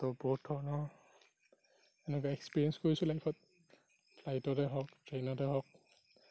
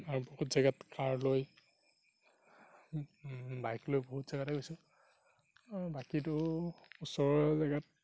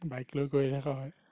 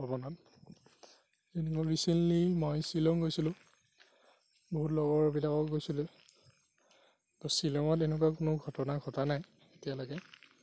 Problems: background sounds at intervals, low volume